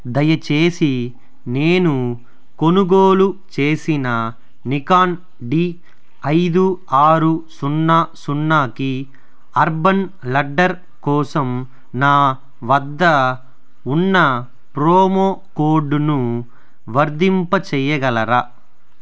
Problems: none marked